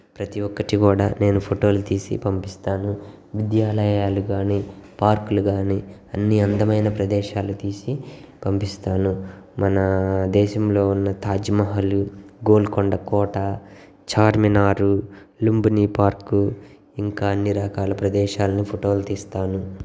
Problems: background sounds at intervals, background conversations at intervals